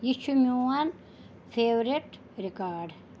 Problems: none marked